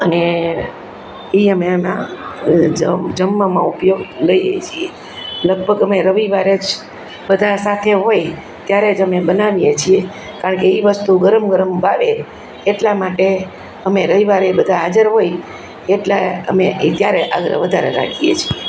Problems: constant background noise